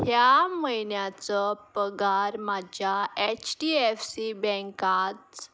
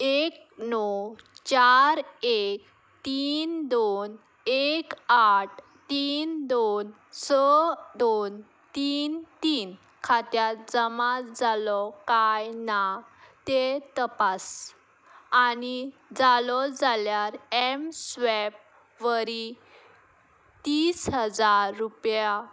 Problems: background sounds at intervals